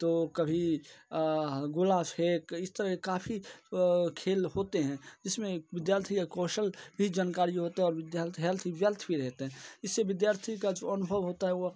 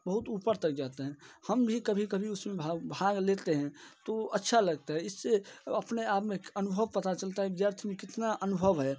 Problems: none marked